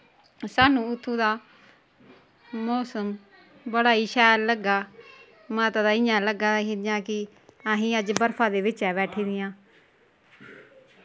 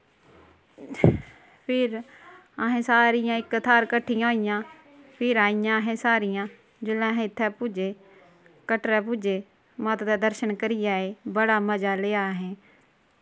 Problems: none marked